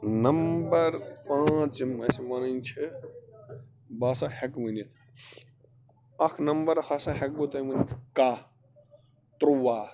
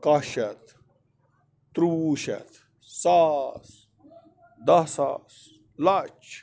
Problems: background sounds at intervals